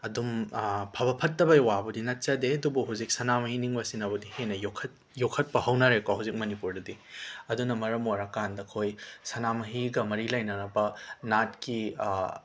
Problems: background sounds at intervals